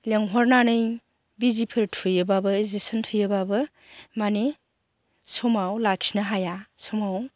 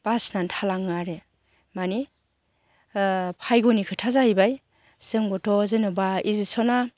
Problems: none marked